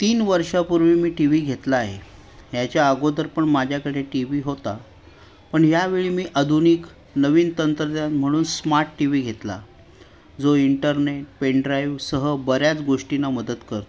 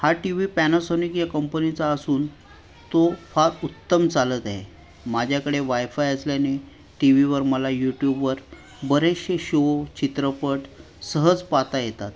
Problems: none marked